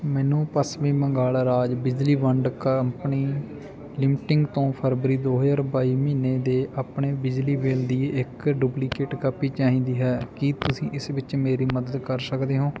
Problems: none marked